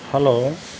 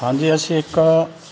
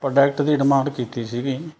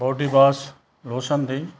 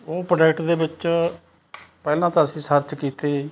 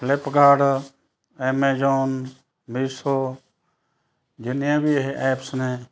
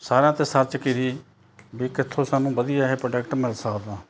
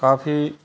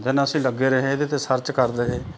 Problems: background sounds at intervals